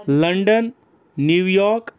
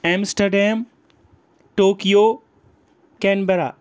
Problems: background conversations at intervals